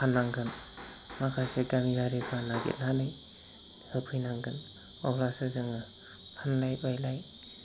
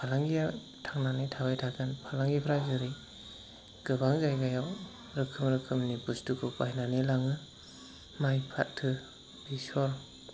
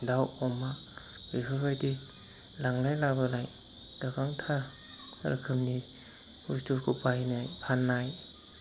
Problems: constant background noise